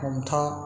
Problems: background sounds at intervals